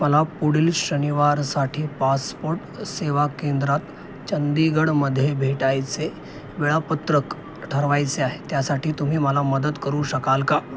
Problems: constant background noise, continuous background conversations